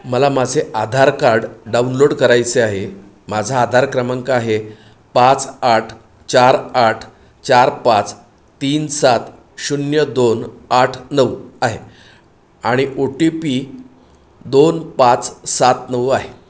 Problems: none marked